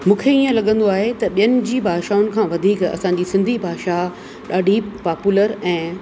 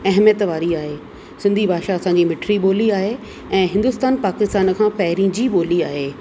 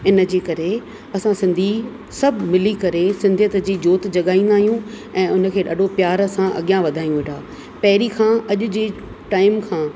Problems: constant background noise